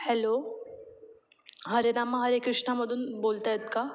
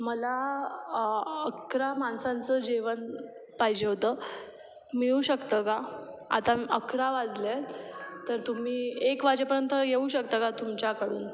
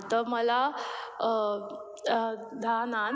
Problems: background sounds at intervals